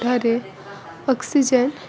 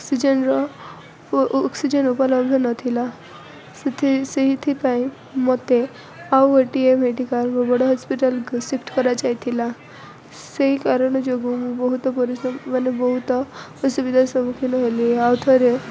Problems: none marked